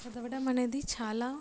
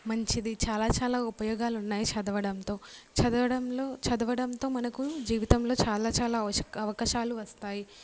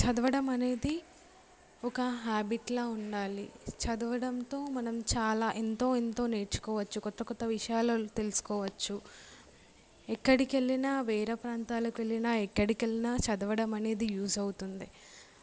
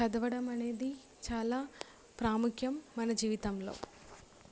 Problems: background sounds at intervals